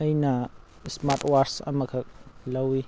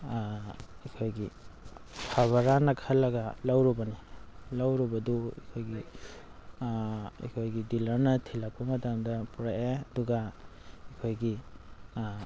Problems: constant background noise